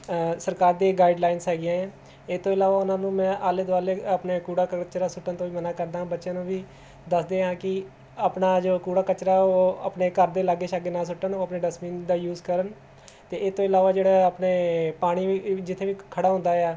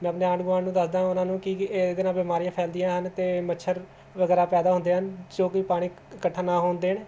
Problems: none marked